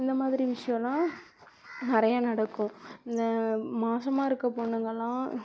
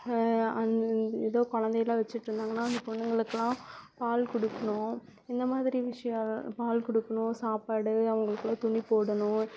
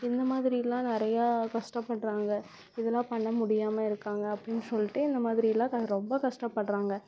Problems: constant background noise